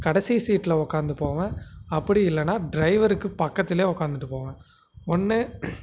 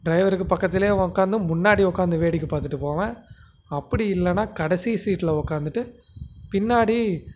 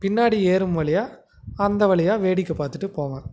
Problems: constant background noise